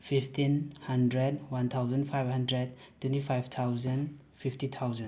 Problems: none marked